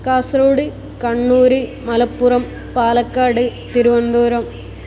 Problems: none marked